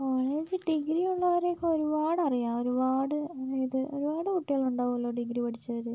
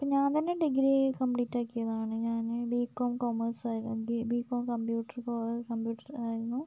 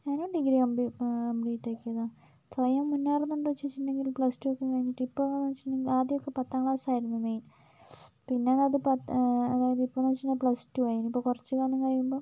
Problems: low volume